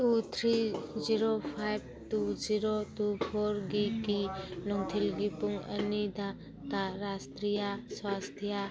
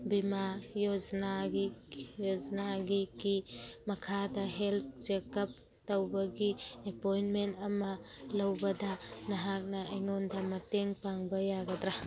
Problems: constant background noise, background conversations at intervals